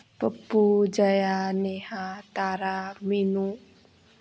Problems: constant background noise